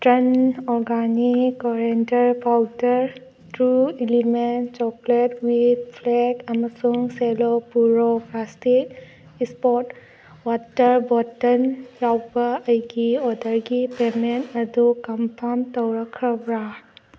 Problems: background sounds at intervals